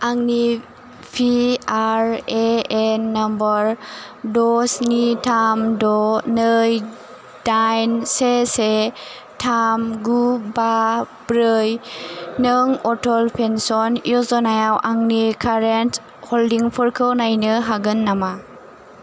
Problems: constant background noise